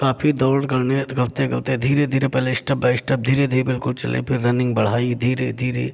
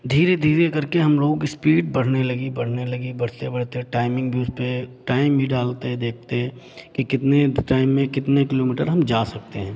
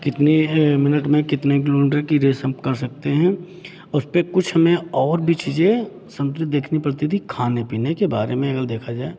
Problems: none marked